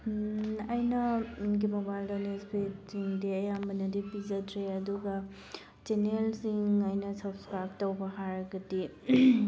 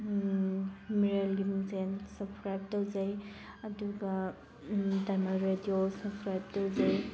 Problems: constant background noise